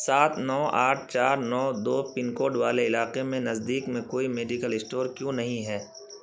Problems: constant background noise